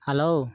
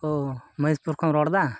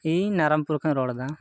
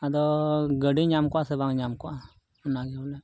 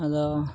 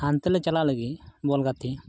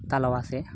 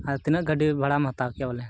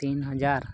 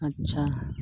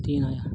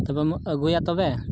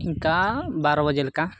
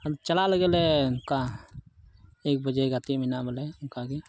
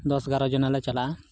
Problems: constant background noise, low volume